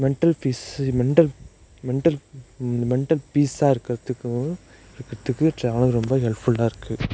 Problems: none marked